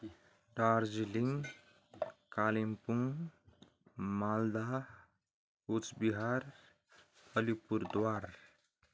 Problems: constant background noise